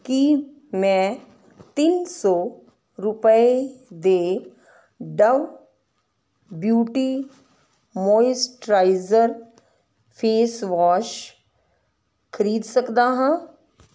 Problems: none marked